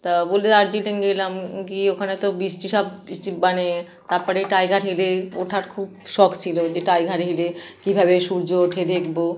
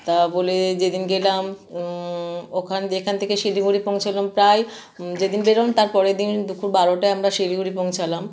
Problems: none marked